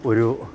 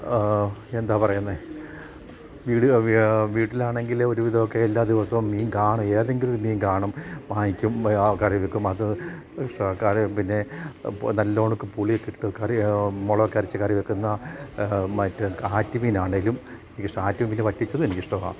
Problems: background conversations at intervals